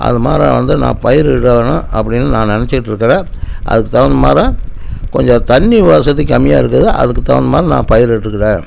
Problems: constant background noise